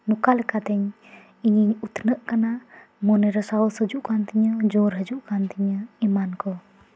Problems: constant background noise